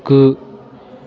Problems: constant background noise